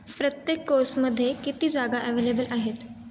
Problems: constant background noise